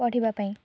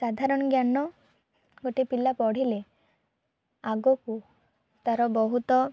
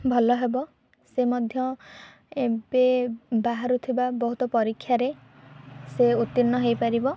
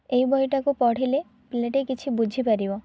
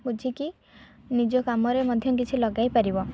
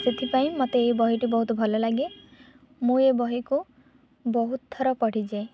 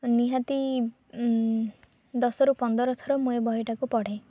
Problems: background sounds at intervals, low volume